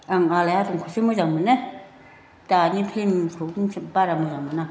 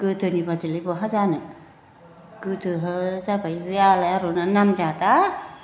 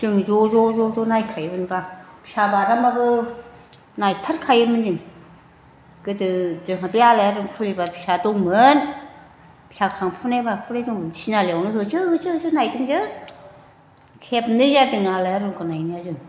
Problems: constant background noise